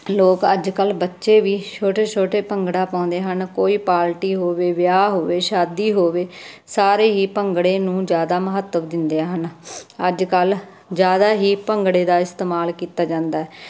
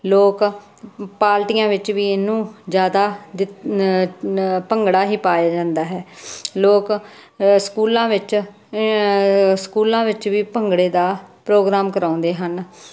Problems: constant background noise